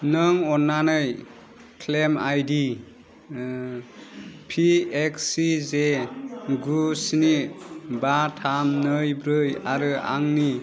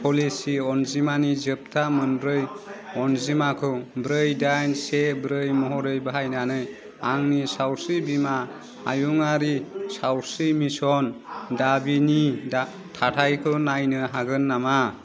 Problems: none marked